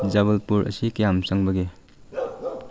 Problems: background sounds at intervals